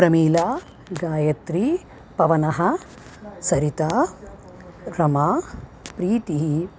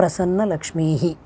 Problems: constant background noise